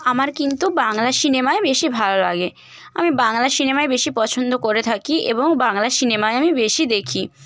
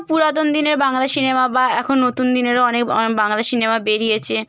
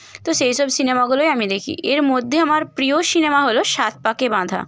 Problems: constant background noise